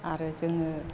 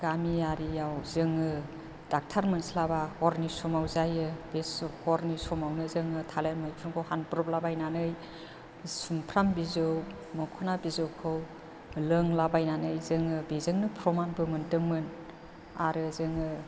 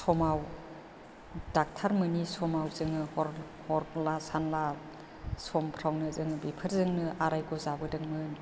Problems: low volume